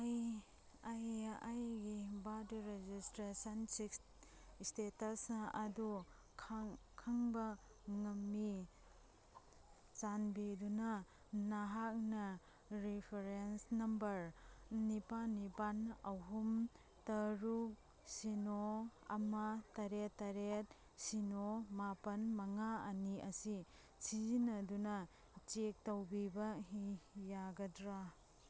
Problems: none marked